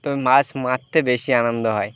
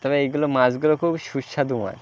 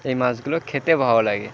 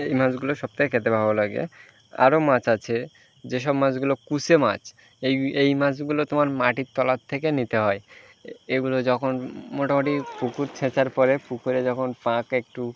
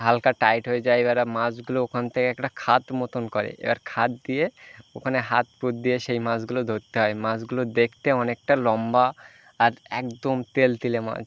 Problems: constant background noise, continuous background conversations